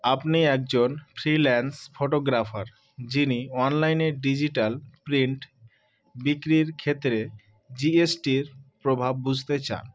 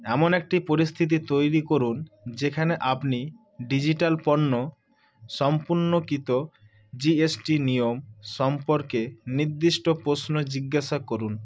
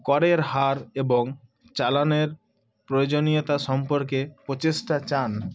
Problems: none marked